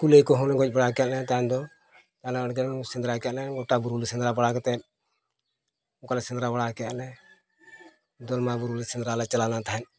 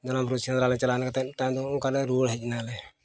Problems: constant background noise